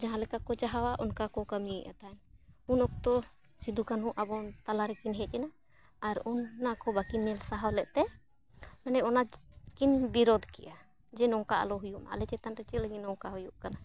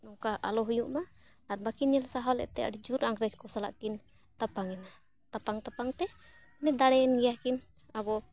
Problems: background sounds at intervals